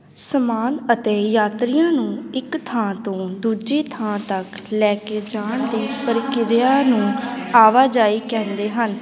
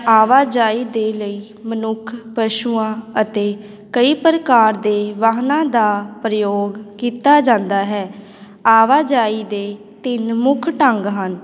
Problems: background conversations at intervals